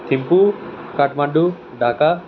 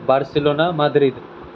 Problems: none marked